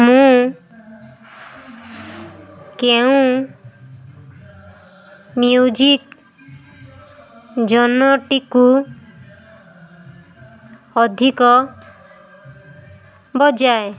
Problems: constant background noise